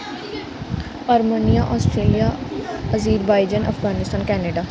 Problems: constant background noise